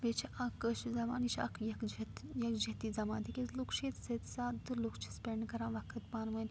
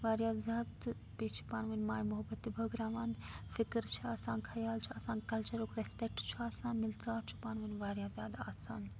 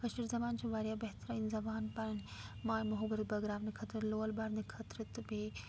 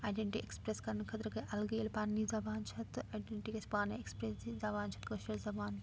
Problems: background sounds at intervals, low volume